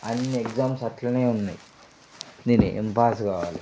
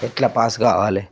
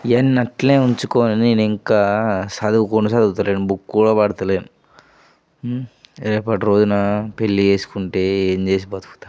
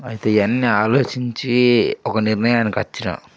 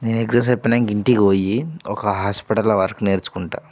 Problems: background sounds at intervals